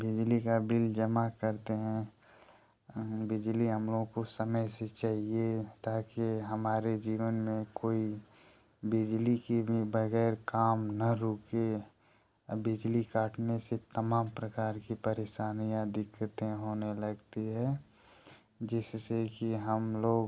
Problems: none marked